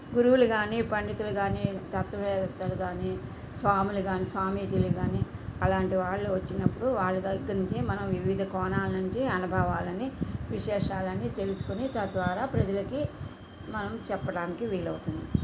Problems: constant background noise